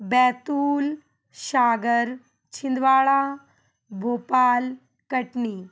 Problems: background sounds at intervals